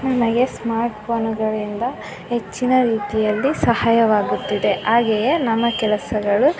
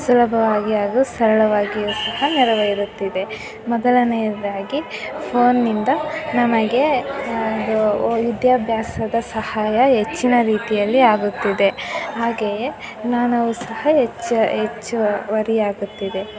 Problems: constant background noise, continuous background conversations